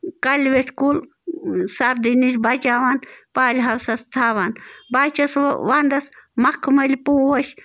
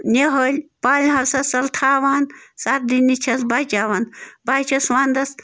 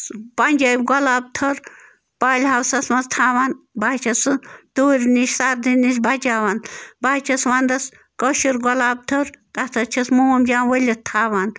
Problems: background sounds at intervals